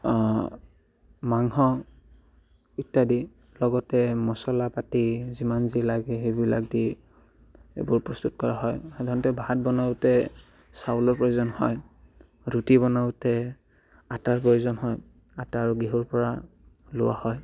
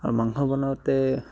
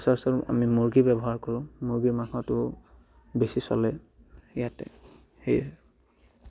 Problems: background sounds at intervals